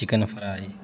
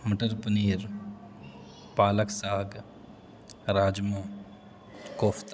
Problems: constant background noise